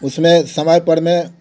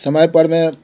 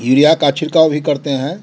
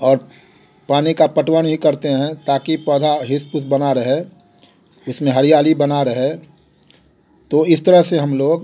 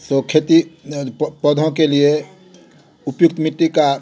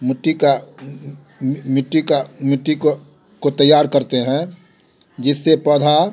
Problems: none marked